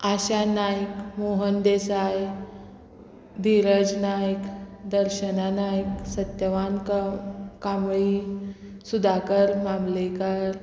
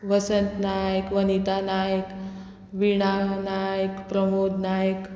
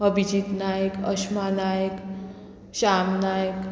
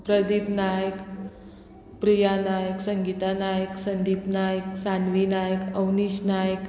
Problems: constant background noise